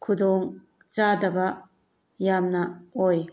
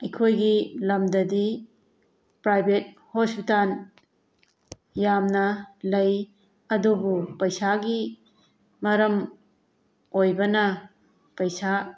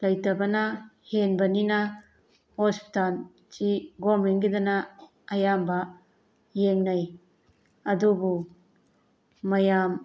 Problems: none marked